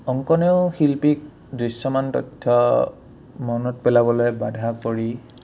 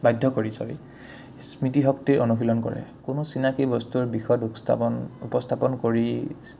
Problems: none marked